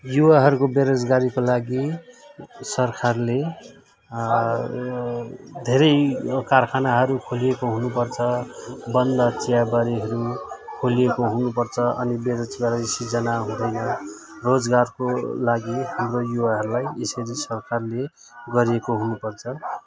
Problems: continuous background conversations